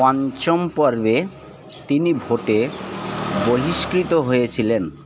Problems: background sounds at intervals